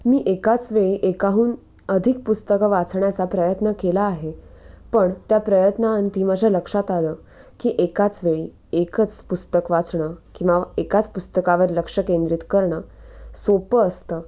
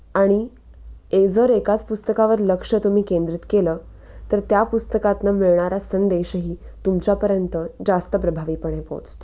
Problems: constant background noise, background conversations at intervals